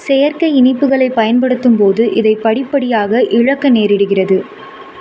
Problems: constant background noise